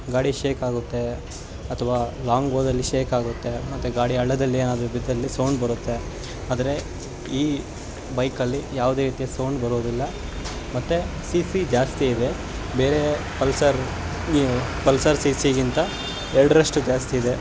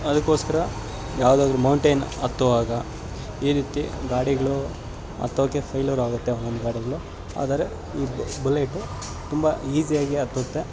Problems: constant background noise